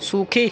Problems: constant background noise